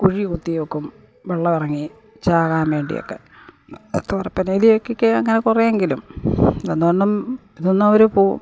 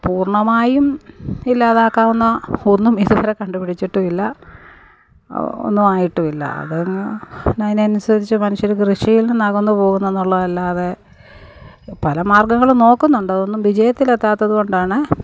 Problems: background sounds at intervals